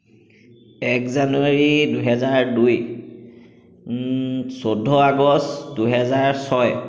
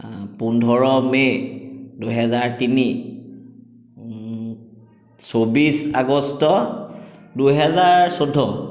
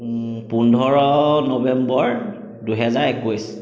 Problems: echo